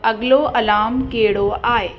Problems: constant background noise, echo